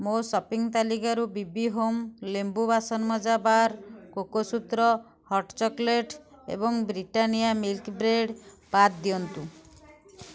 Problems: background sounds at intervals, background conversations at intervals